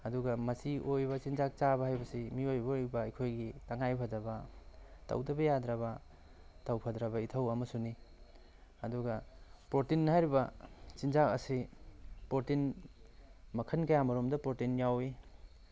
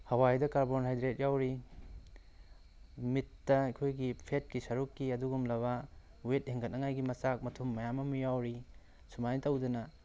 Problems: background sounds at intervals